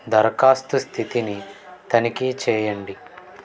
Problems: background conversations at intervals